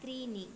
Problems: low volume